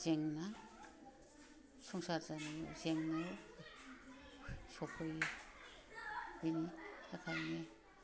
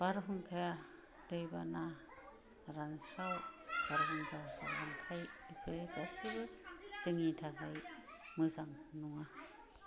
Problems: low volume